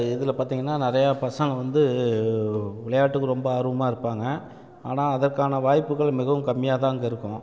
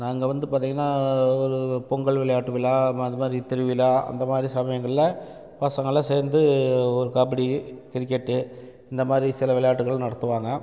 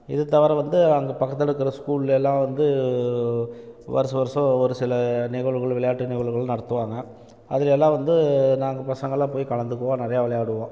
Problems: constant background noise